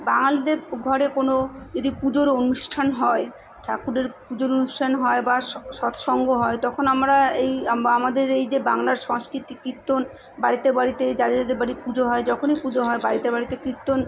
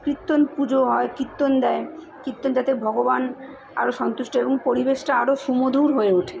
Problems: constant background noise, continuous background conversations